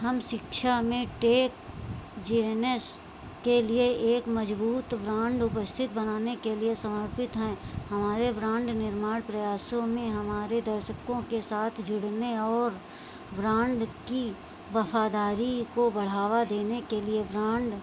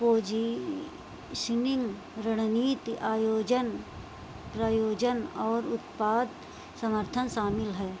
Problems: constant background noise